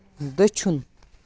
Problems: none marked